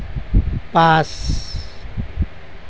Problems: constant background noise